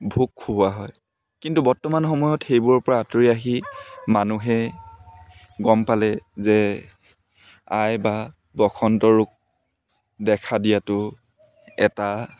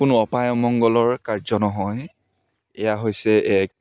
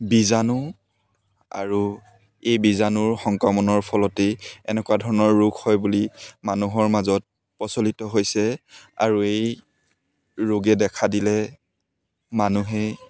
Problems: background sounds at intervals